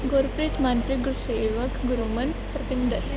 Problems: none marked